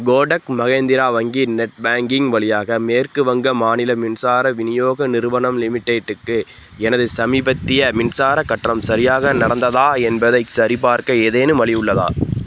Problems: background sounds at intervals